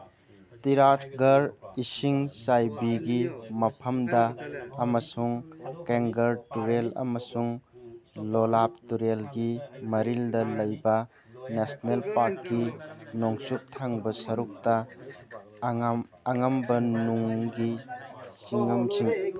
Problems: constant background noise